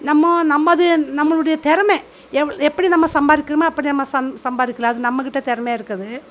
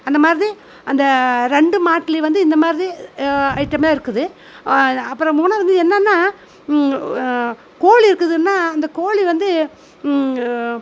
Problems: constant background noise